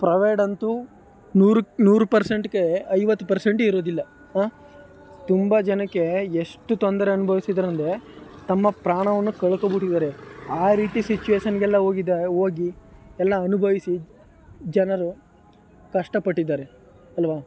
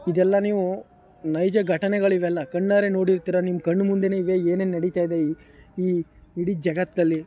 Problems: background sounds at intervals